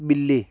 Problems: none marked